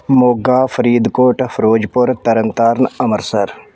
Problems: background sounds at intervals